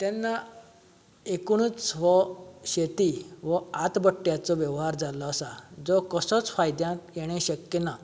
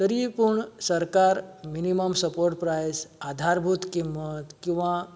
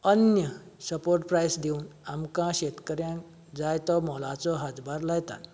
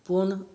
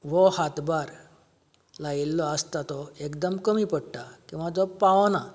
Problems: none marked